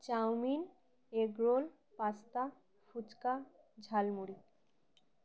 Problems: background sounds at intervals